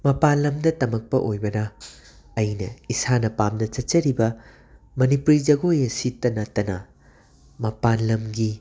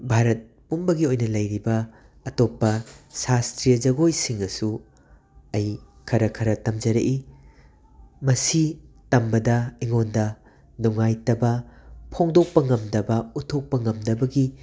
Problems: constant background noise